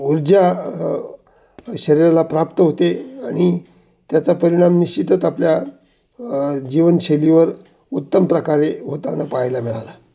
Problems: constant background noise